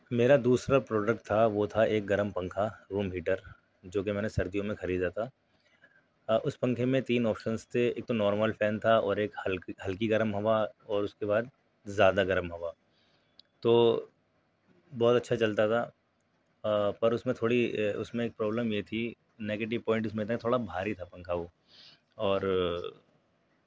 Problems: none marked